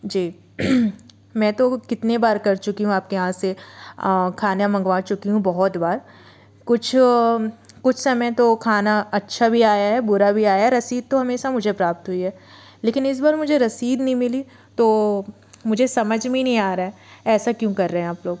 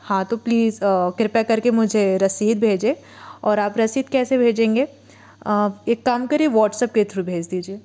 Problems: background sounds at intervals